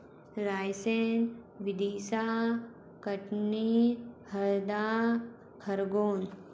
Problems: constant background noise